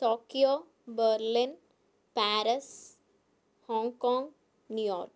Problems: low volume